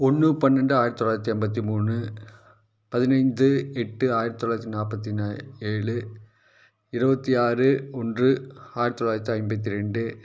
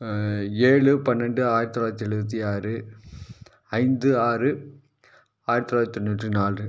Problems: none marked